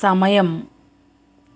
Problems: none marked